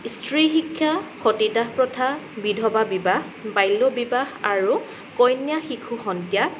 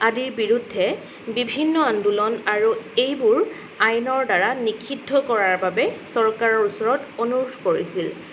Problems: background sounds at intervals